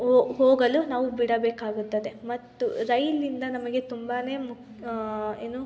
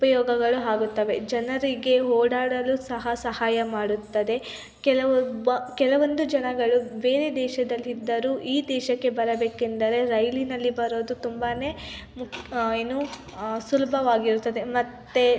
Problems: continuous background conversations